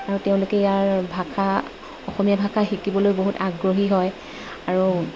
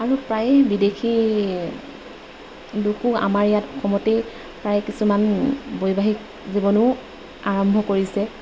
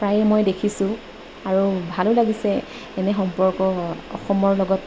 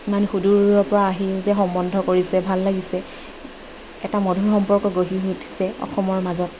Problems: none marked